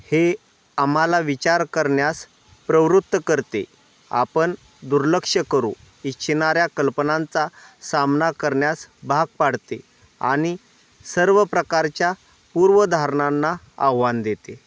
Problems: constant background noise